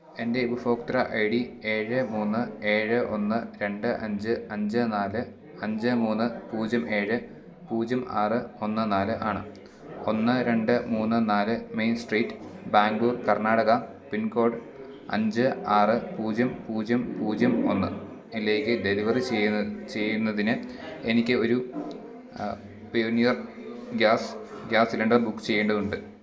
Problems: low volume